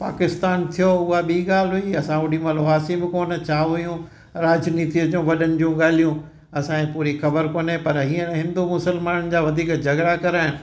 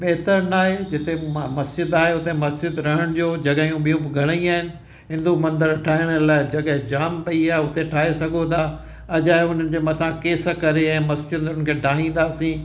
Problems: constant background noise, echo